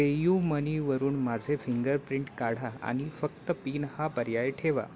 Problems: none marked